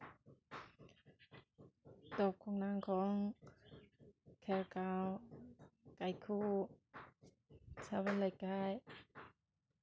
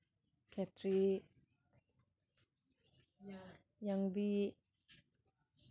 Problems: background sounds at intervals